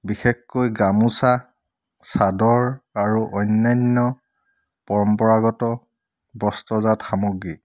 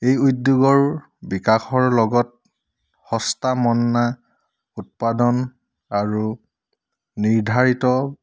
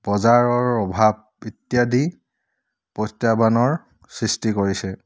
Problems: none marked